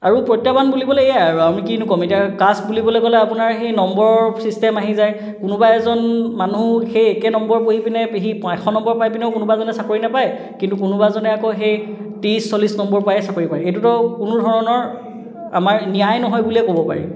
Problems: background sounds at intervals, echo